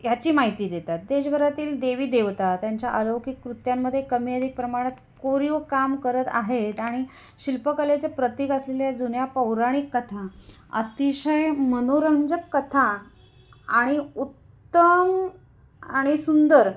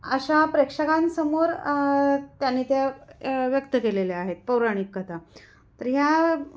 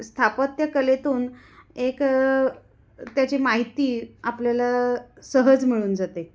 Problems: constant background noise, echo